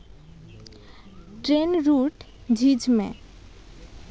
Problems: none marked